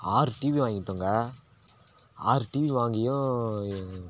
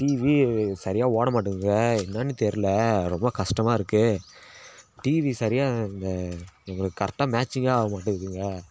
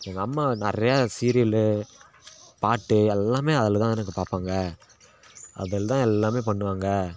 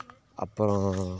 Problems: constant background noise